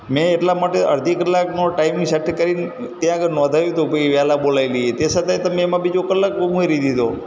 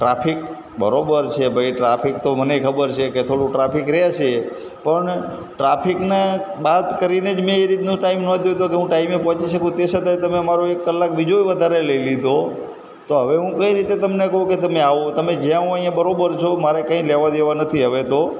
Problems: constant background noise